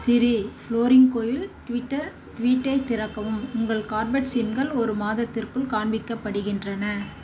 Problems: background sounds at intervals